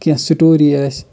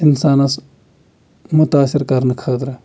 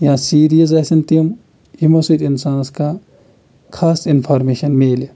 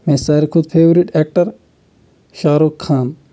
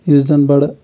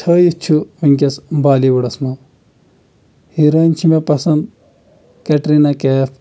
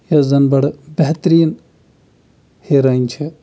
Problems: none marked